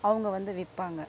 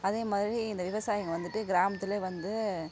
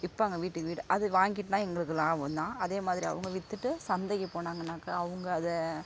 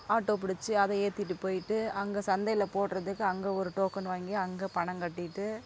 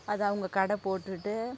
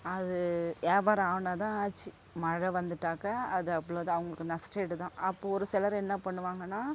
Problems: constant background noise, low volume